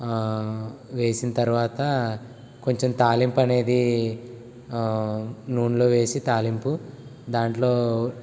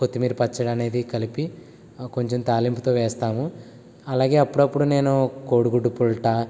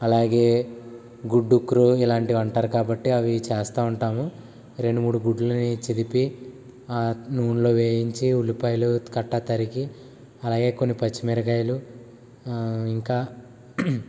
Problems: constant background noise